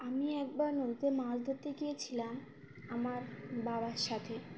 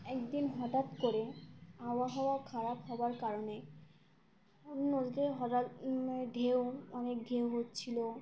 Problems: background sounds at intervals